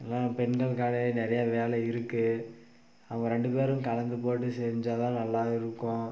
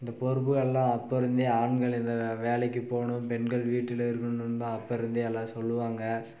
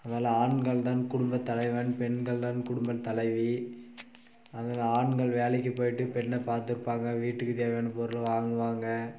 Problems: constant background noise